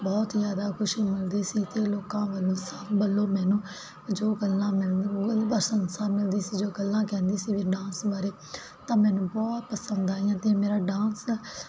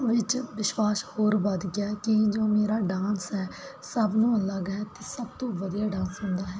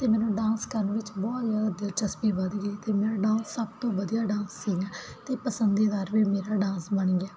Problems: none marked